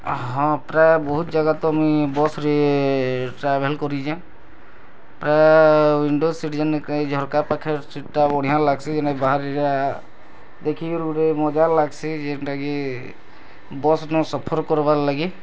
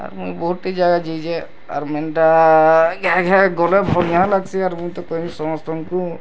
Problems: constant background noise